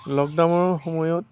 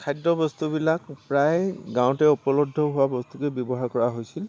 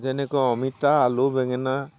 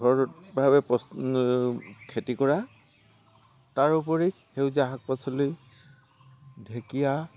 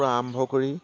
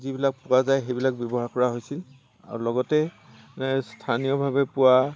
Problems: constant background noise